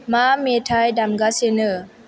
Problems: none marked